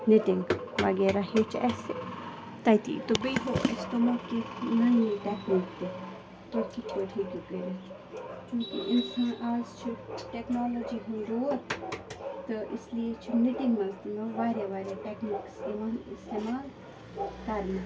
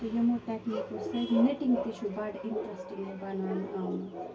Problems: constant background noise, low volume